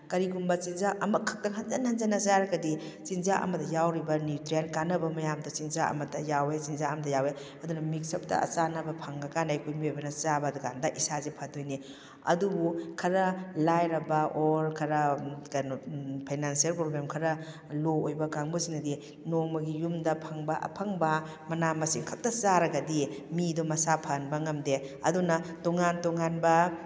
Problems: background sounds at intervals